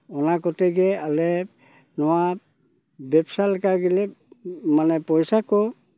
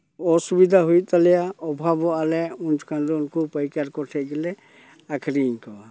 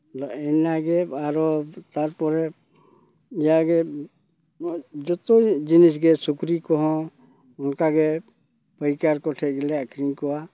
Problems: none marked